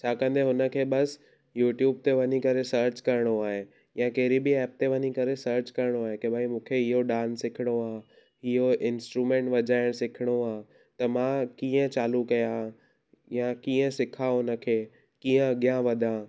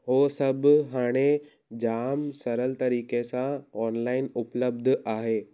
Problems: none marked